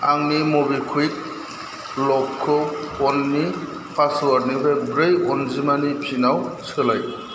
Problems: constant background noise